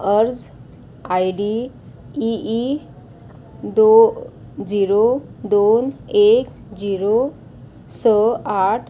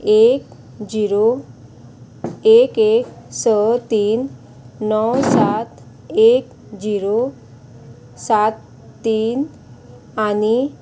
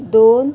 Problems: constant background noise